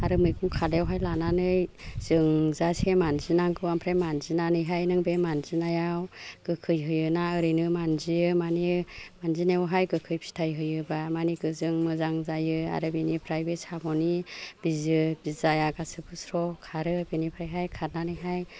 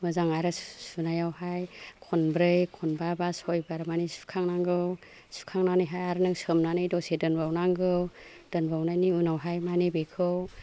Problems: background conversations at intervals